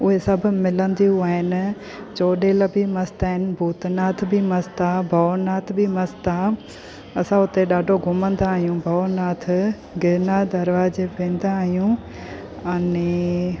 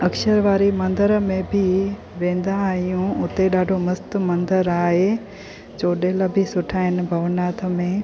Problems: constant background noise